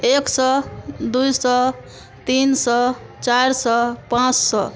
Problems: background sounds at intervals